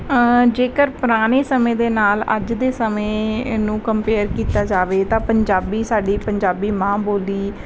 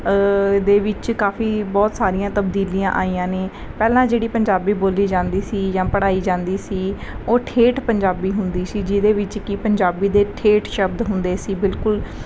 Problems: none marked